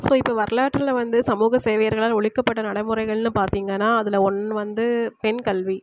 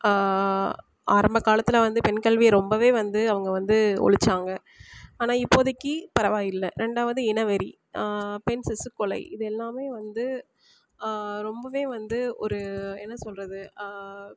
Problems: constant background noise